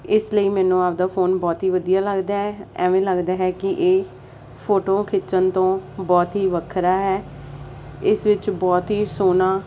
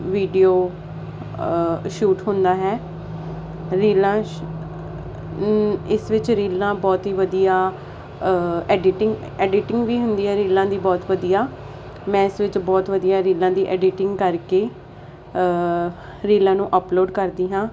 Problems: none marked